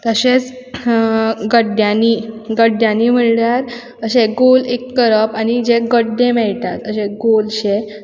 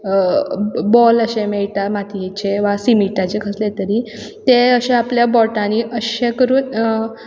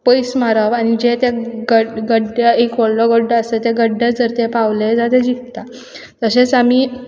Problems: background sounds at intervals